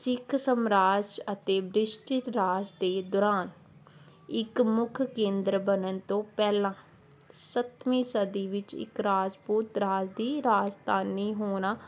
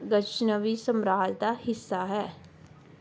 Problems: none marked